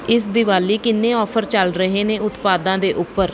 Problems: background sounds at intervals